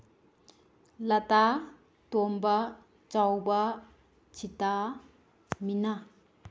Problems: none marked